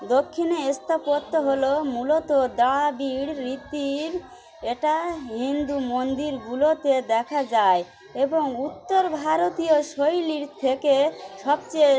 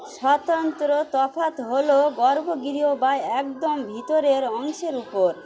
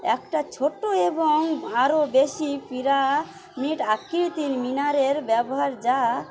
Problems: constant background noise, continuous background conversations